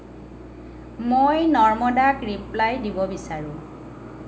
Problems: none marked